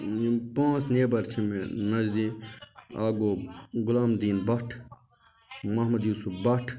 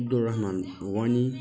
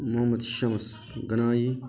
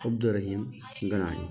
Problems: continuous background conversations